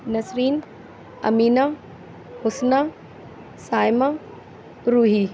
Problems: none marked